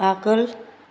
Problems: none marked